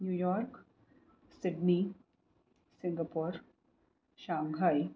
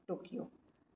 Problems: low volume